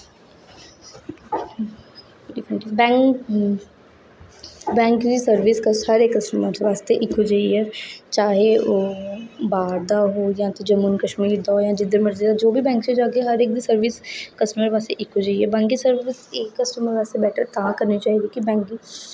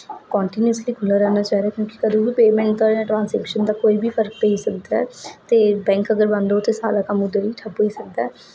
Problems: echo